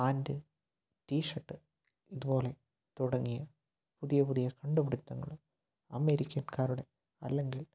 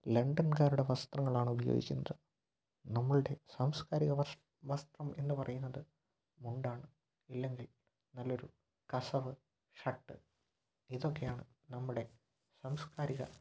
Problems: low volume